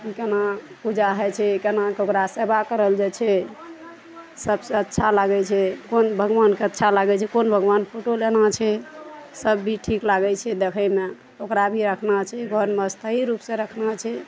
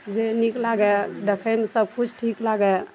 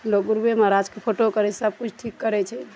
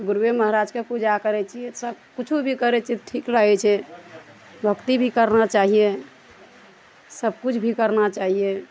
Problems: none marked